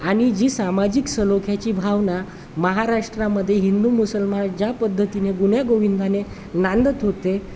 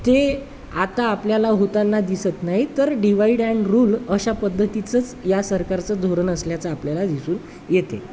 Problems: constant background noise, background conversations at intervals